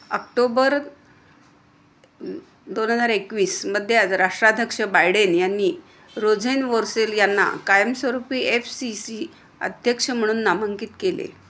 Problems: constant background noise